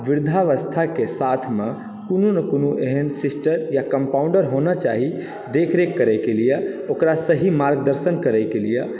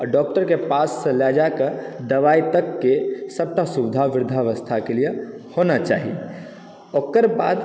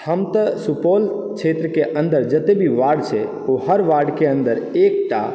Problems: background sounds at intervals